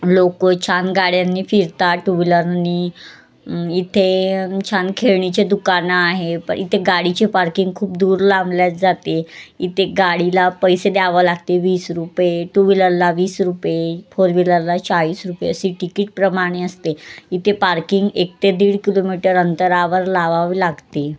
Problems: constant background noise, background conversations at intervals